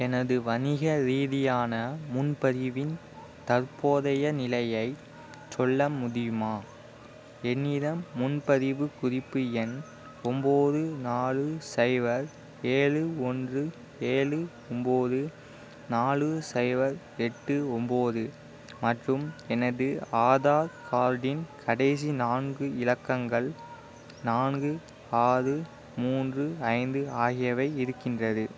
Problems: constant background noise